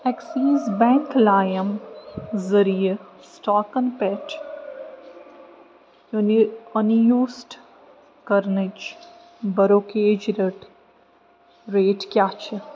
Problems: constant background noise